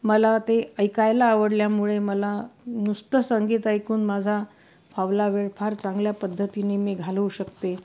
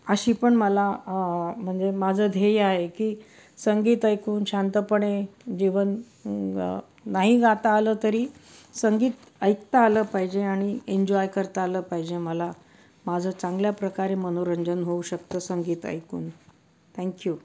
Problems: background sounds at intervals